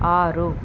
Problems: constant background noise